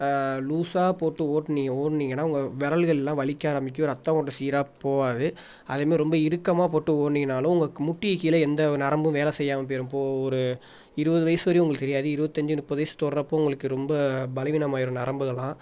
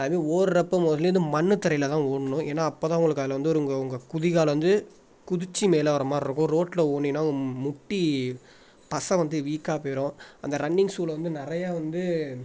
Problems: background sounds at intervals